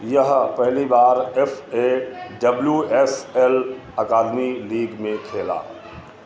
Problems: constant background noise, continuous background conversations